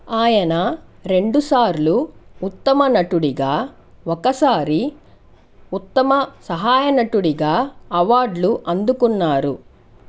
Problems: none marked